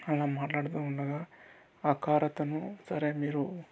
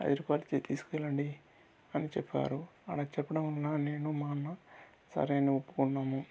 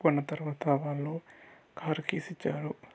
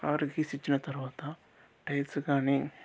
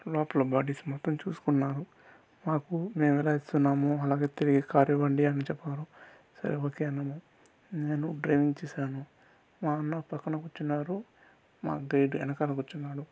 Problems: constant background noise, low volume